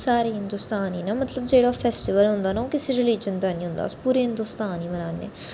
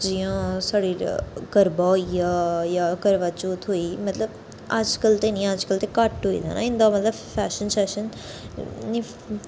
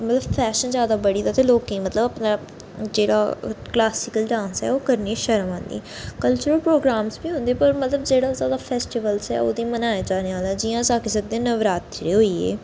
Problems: constant background noise